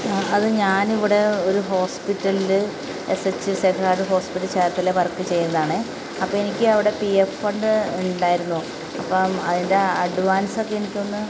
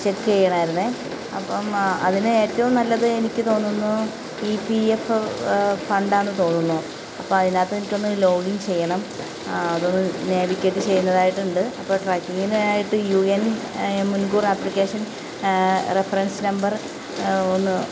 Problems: constant background noise, low volume